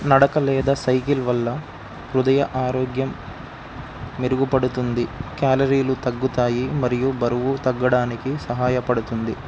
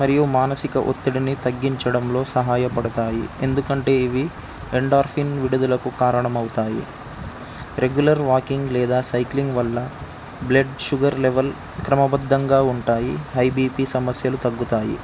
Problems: constant background noise